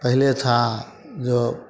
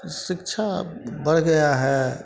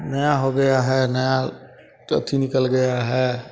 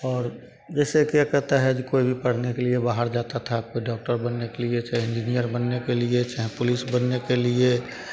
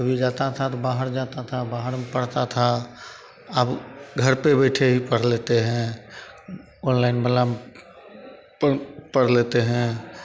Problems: none marked